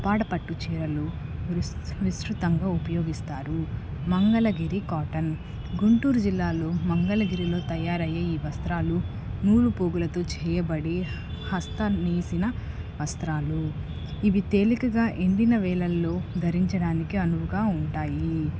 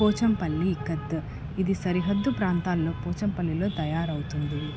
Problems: constant background noise